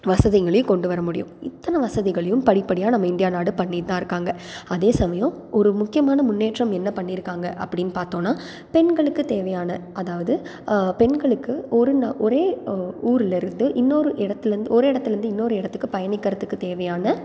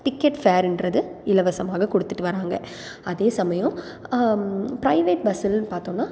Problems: background sounds at intervals